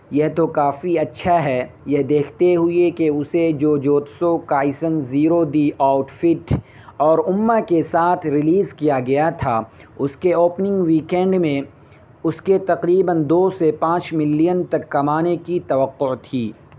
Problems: constant background noise